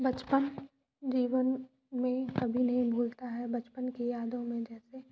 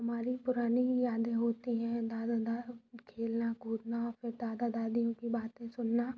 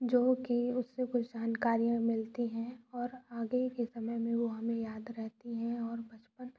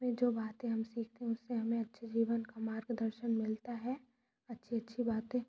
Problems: low volume